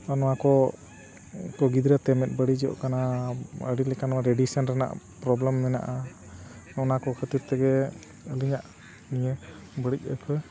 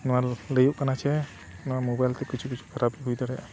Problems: constant background noise, continuous background conversations